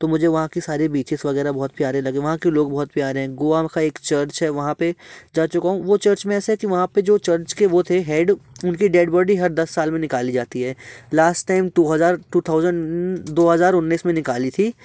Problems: none marked